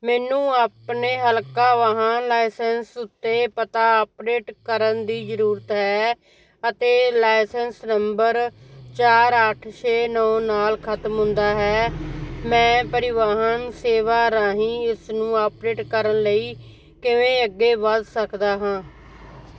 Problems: constant background noise